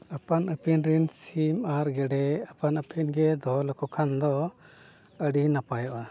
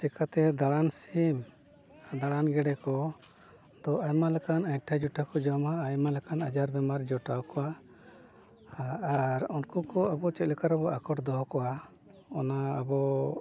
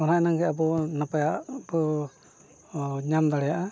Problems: background sounds at intervals, background conversations at intervals, low volume